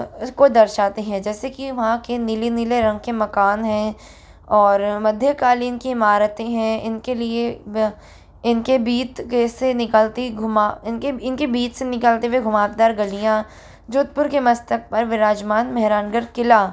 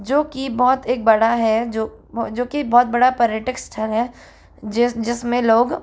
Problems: constant background noise